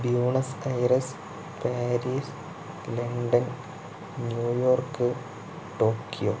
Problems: low volume